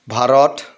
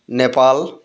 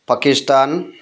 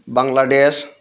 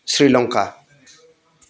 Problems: none marked